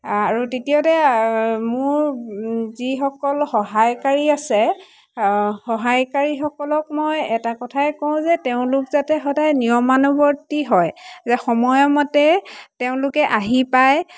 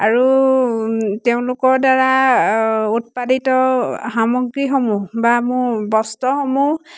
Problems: constant background noise, background conversations at intervals